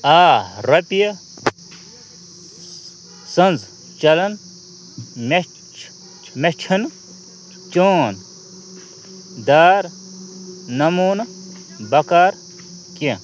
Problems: constant background noise